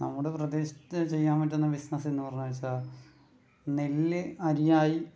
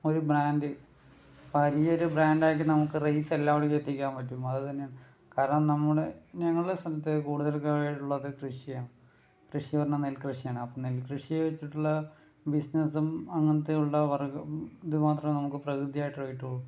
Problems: low volume